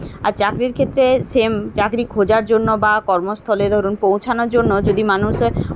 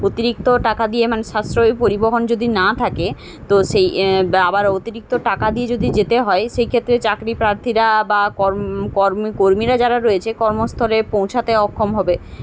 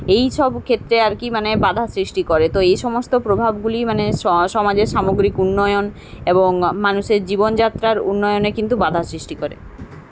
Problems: none marked